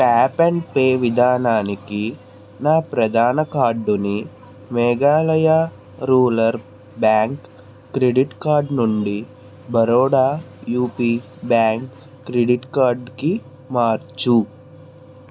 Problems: none marked